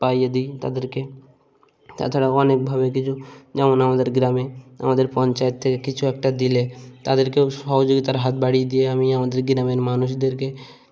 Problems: constant background noise, background conversations at intervals